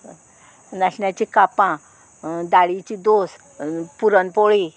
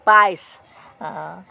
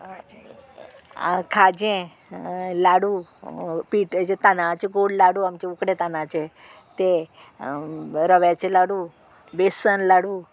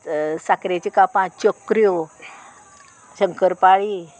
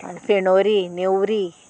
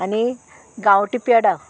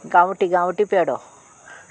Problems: none marked